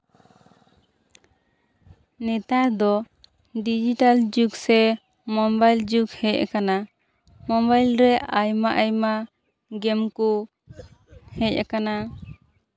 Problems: constant background noise, continuous background conversations